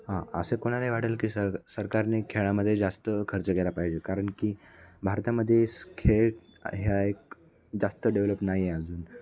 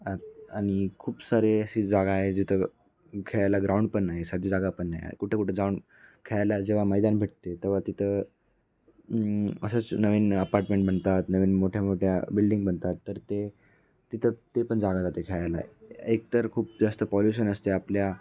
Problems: background sounds at intervals